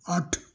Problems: background sounds at intervals